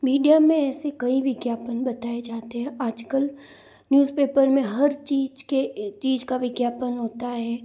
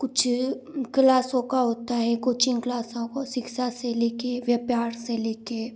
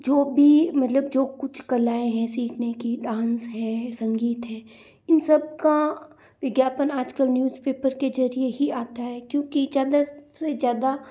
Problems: none marked